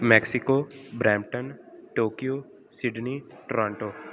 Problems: none marked